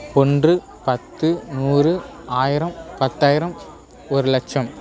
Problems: background sounds at intervals